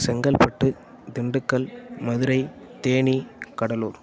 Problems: none marked